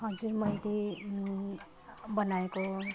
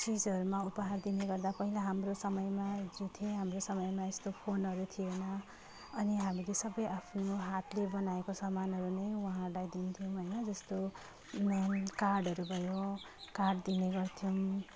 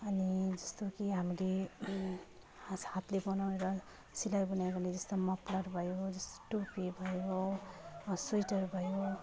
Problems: continuous background conversations